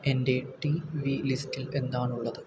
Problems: constant background noise